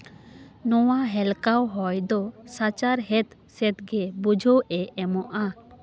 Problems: background conversations at intervals